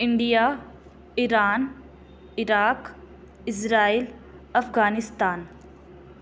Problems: constant background noise